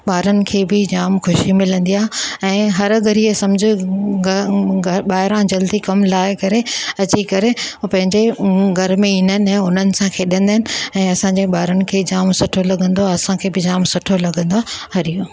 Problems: none marked